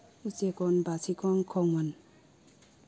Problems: none marked